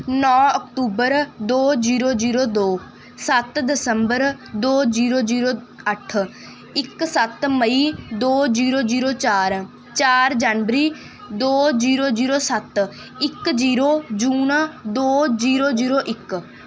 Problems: background sounds at intervals